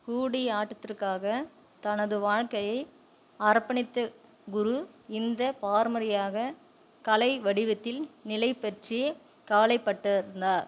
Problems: constant background noise